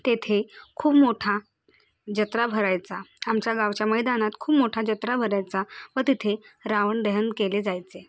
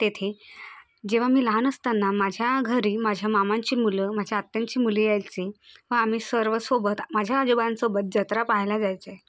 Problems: none marked